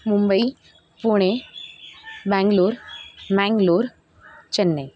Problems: constant background noise